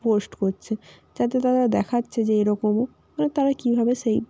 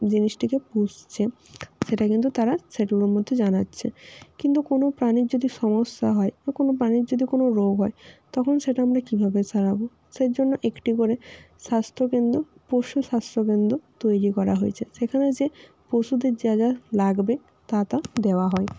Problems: constant background noise